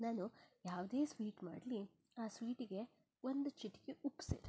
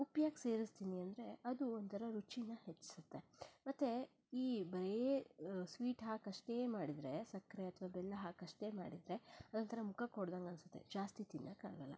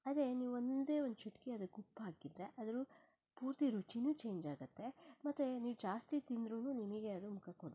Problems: none marked